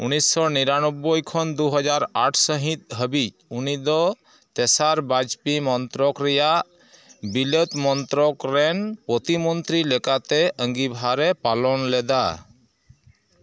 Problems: background sounds at intervals